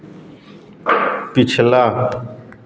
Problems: constant background noise, background conversations at intervals, echo